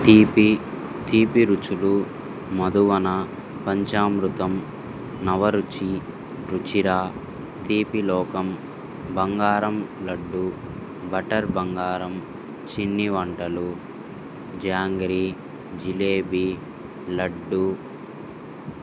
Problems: constant background noise